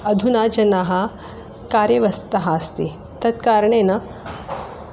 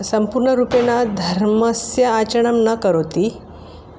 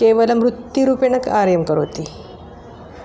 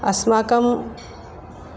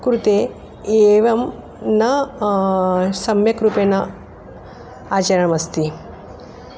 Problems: constant background noise